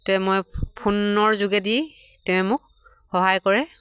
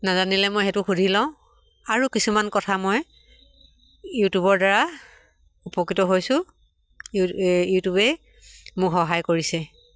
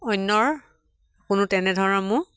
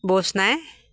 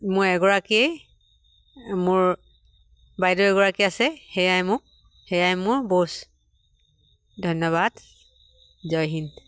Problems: none marked